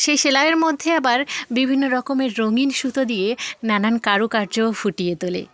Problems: none marked